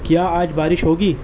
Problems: constant background noise